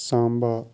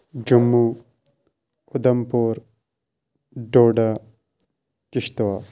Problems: background sounds at intervals